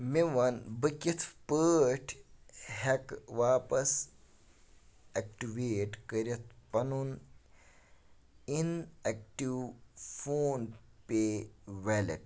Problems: background sounds at intervals